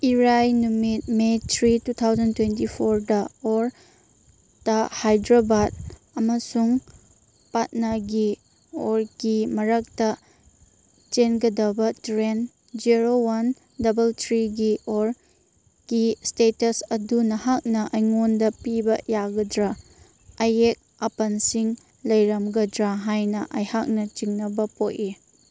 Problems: background sounds at intervals